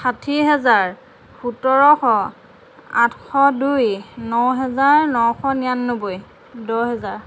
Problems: constant background noise